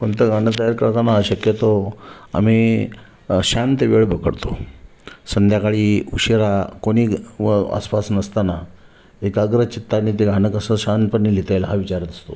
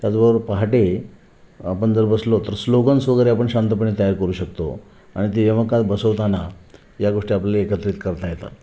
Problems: constant background noise, echo